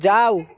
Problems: background sounds at intervals